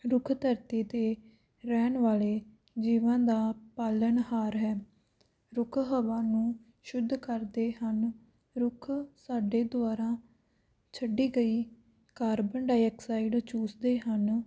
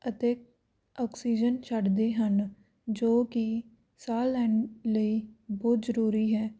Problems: none marked